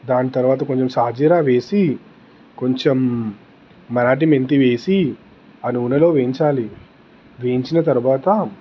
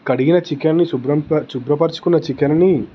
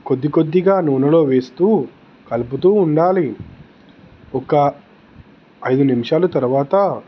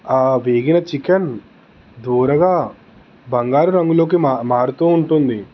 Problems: constant background noise, background conversations at intervals